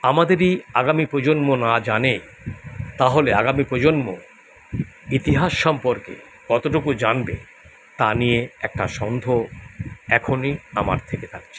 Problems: constant background noise